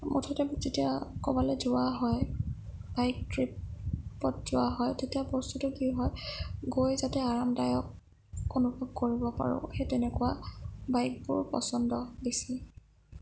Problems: low volume